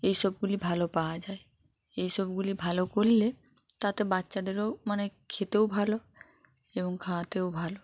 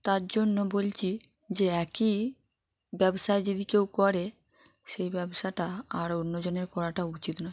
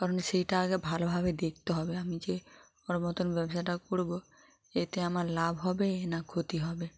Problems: background conversations at intervals